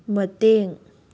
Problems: low volume